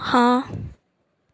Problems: none marked